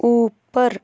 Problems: none marked